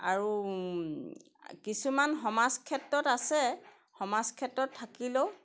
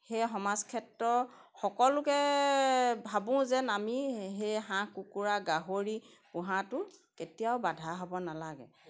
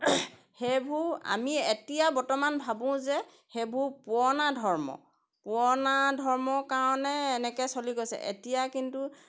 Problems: none marked